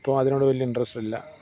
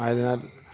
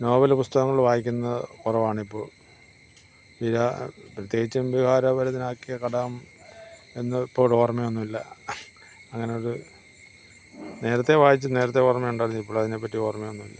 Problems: none marked